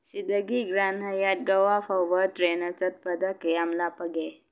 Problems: none marked